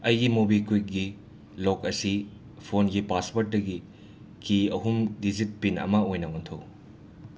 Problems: constant background noise